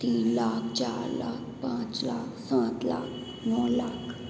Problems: constant background noise, echo